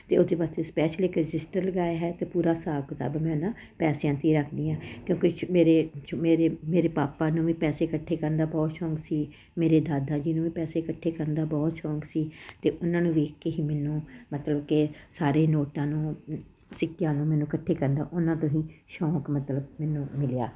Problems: none marked